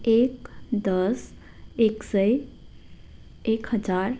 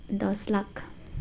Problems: constant background noise